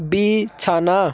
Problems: none marked